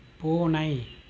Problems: constant background noise